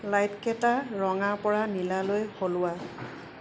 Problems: constant background noise